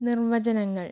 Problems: none marked